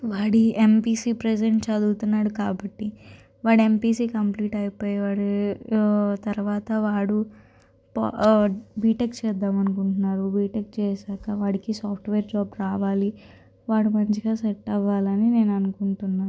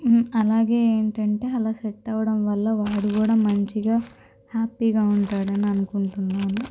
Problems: constant background noise